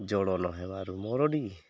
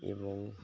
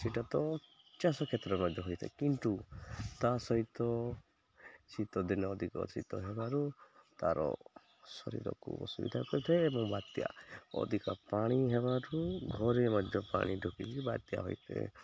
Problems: none marked